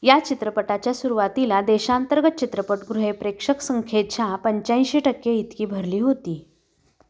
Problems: none marked